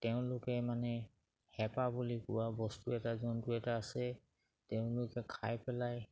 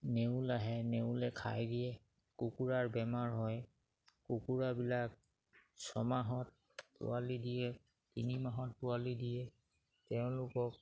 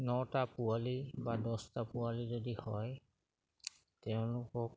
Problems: none marked